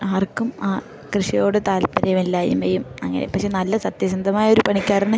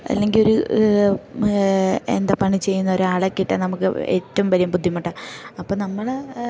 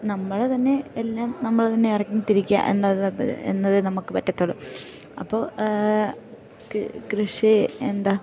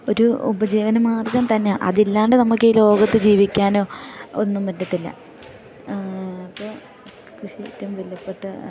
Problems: background sounds at intervals